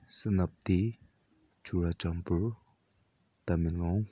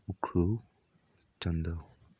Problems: low volume